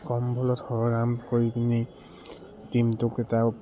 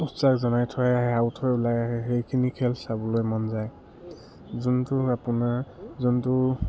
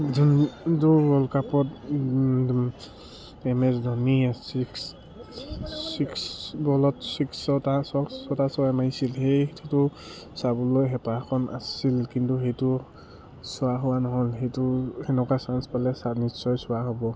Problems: background sounds at intervals